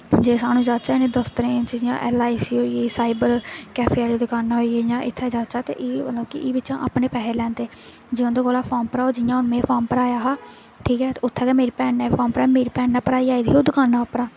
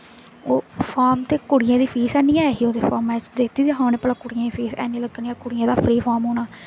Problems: constant background noise